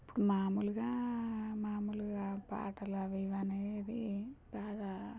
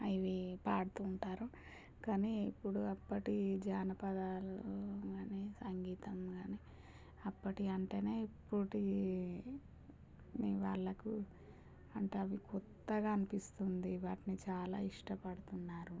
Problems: low volume